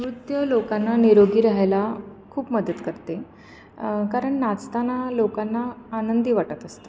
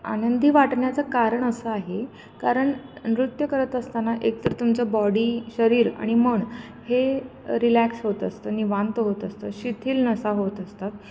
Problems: none marked